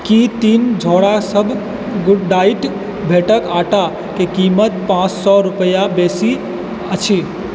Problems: constant background noise